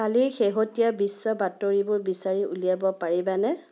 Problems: constant background noise